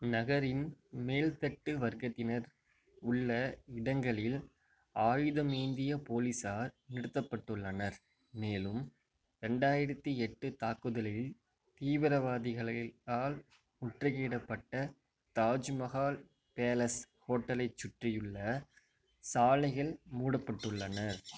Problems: background sounds at intervals